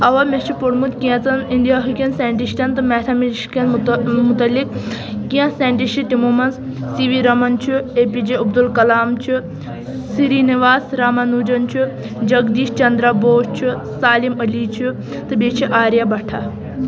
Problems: constant background noise, continuous background conversations